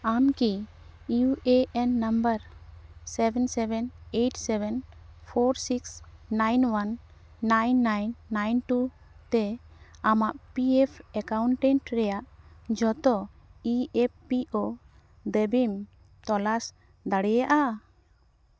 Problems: none marked